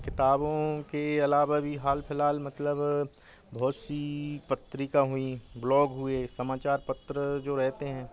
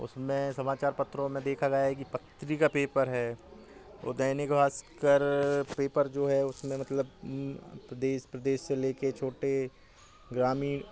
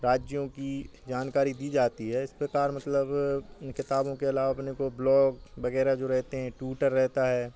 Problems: constant background noise